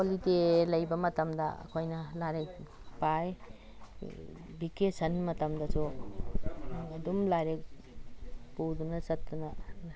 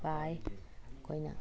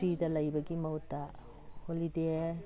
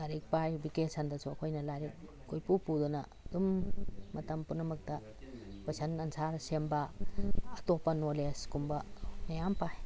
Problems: constant background noise